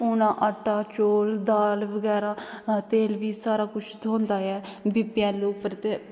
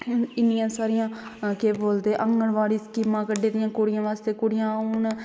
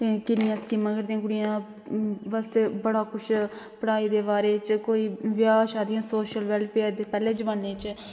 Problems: none marked